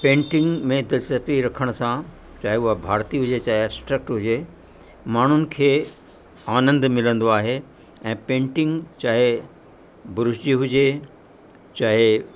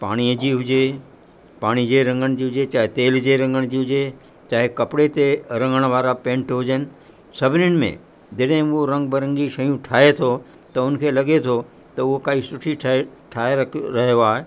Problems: constant background noise